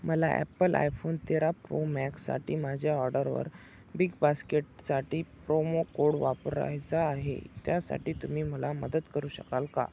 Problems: constant background noise